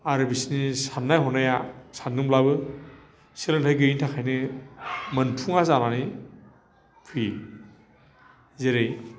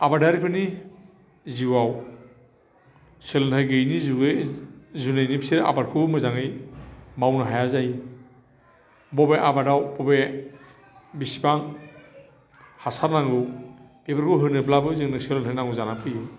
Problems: constant background noise